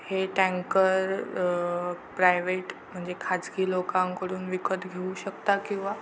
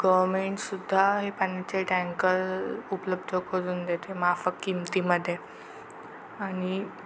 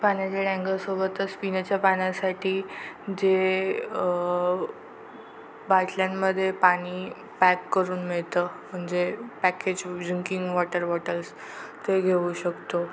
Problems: constant background noise